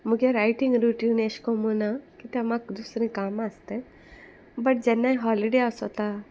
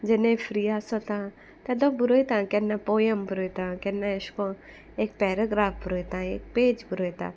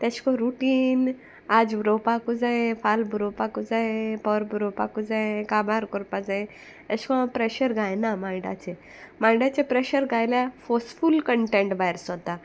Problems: none marked